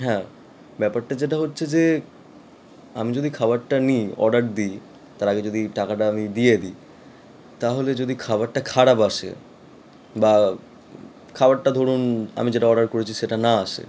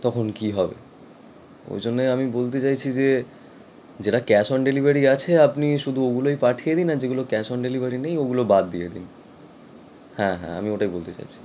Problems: none marked